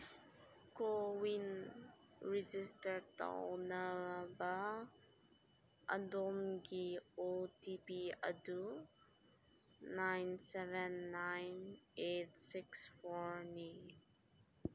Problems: low volume